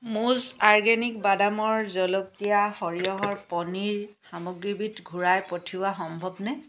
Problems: background sounds at intervals